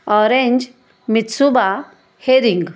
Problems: none marked